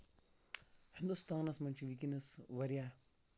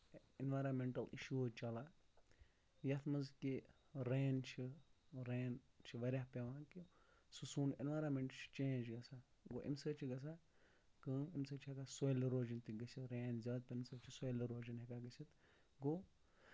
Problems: low volume